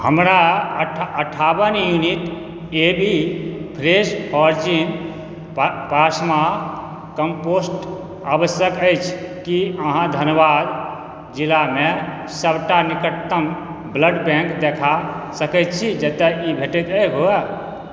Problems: background sounds at intervals